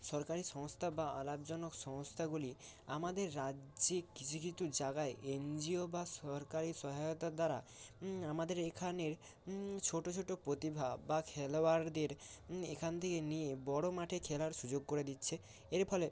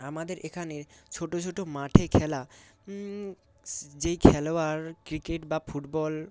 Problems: constant background noise